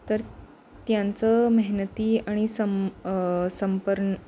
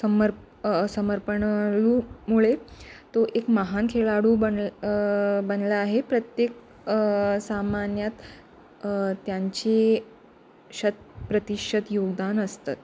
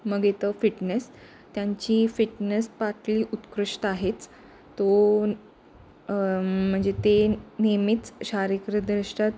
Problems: none marked